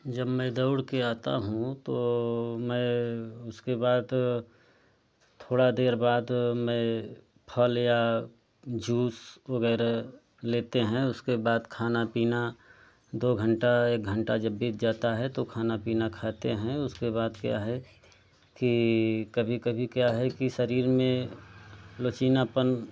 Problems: low volume